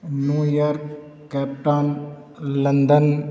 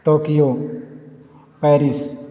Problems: constant background noise